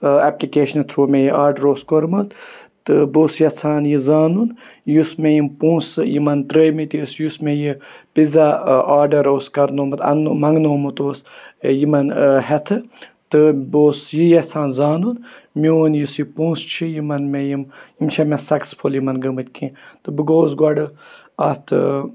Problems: continuous background conversations